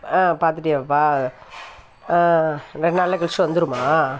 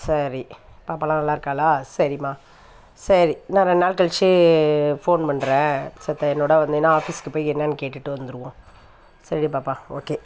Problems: background sounds at intervals